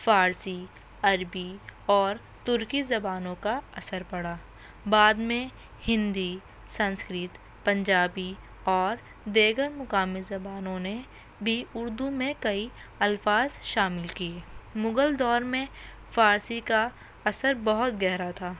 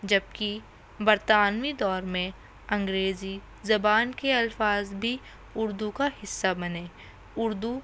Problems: constant background noise